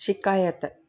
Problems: none marked